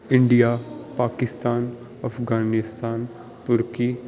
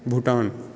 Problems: background sounds at intervals